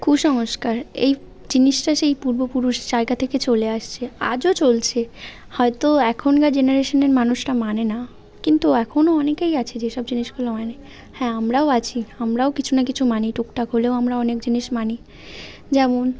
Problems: constant background noise